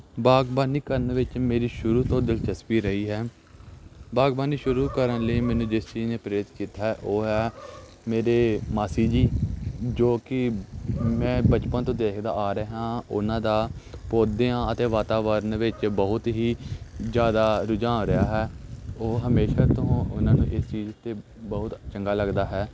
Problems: none marked